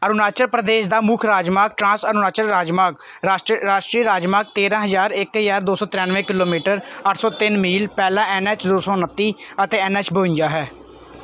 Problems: constant background noise